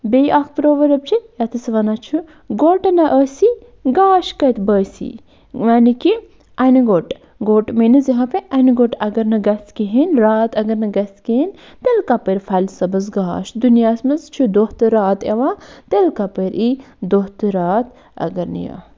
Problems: none marked